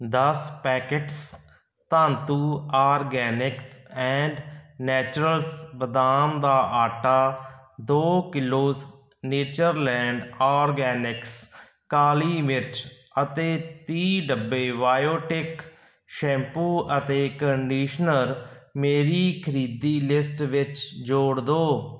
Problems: background sounds at intervals